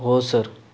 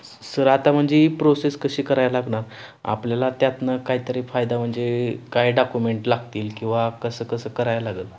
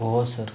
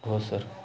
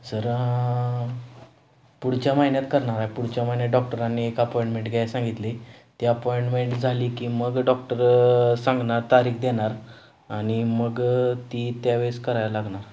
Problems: none marked